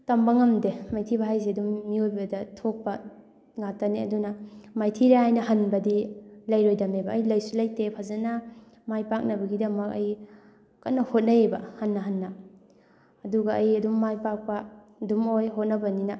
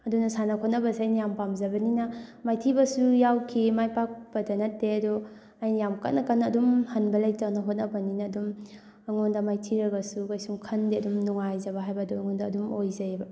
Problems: background sounds at intervals, background conversations at intervals